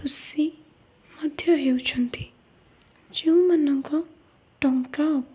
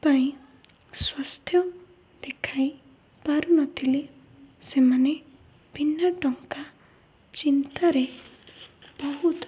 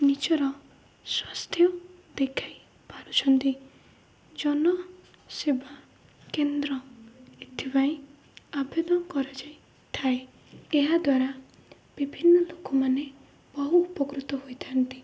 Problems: low volume